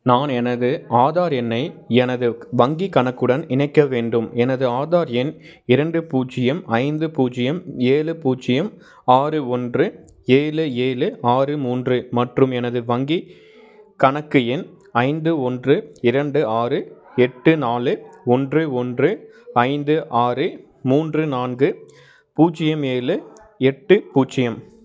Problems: background sounds at intervals